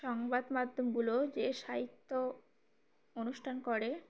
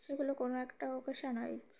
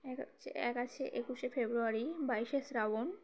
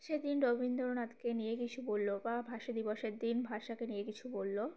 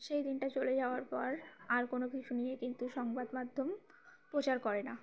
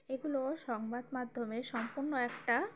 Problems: background sounds at intervals, background conversations at intervals, low volume